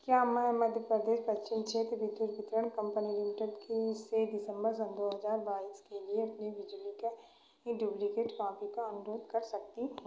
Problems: background sounds at intervals, echo